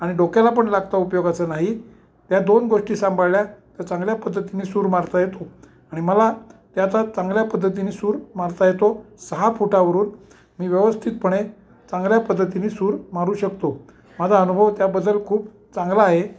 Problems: none marked